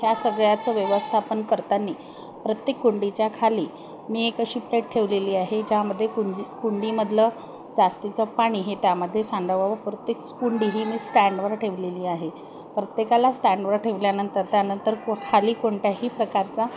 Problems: constant background noise, continuous background conversations